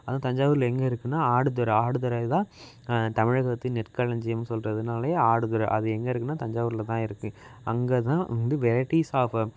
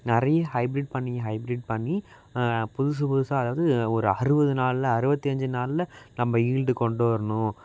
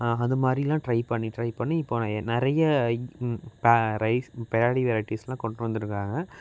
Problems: constant background noise